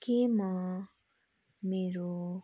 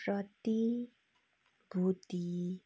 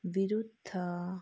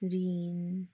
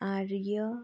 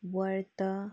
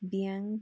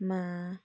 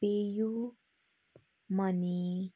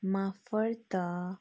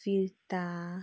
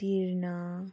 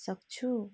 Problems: background sounds at intervals